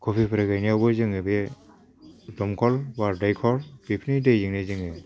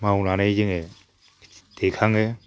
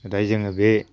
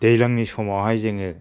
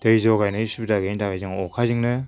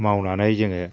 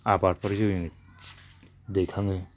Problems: low volume